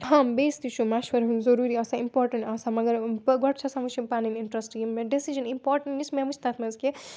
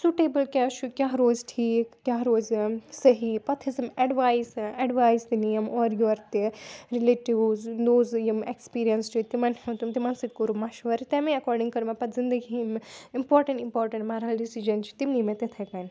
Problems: background sounds at intervals